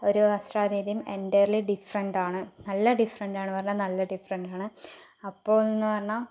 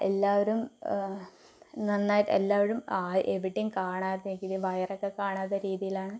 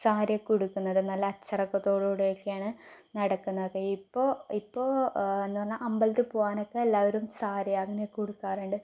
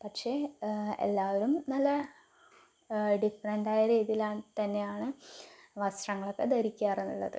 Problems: none marked